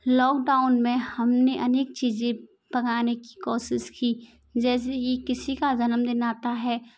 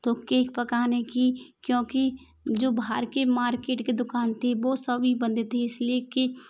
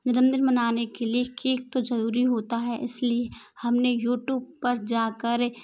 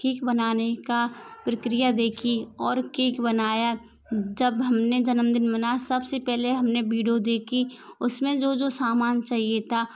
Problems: constant background noise